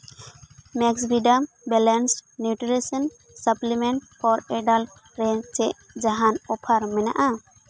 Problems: none marked